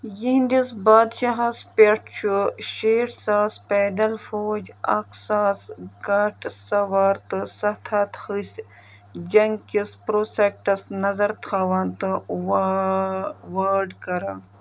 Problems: background sounds at intervals